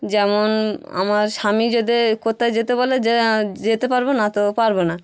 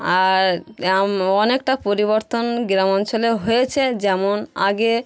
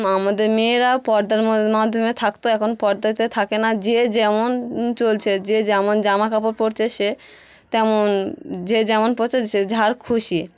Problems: none marked